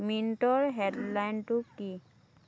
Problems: background conversations at intervals